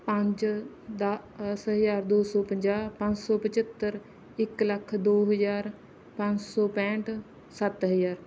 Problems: none marked